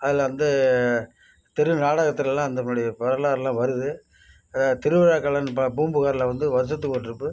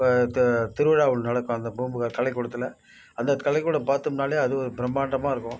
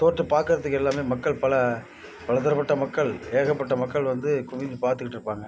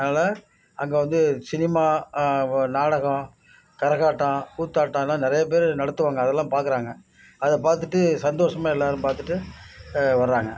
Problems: constant background noise